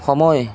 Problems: none marked